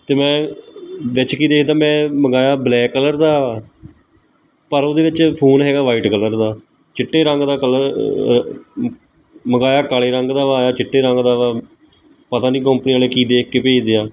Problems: background sounds at intervals